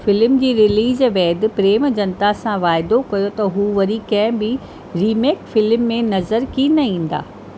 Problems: constant background noise